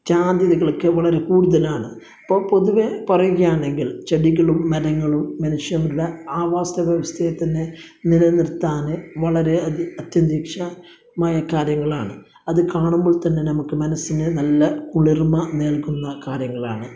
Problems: none marked